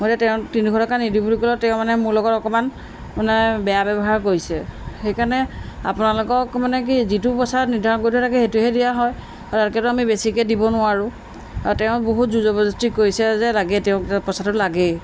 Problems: background sounds at intervals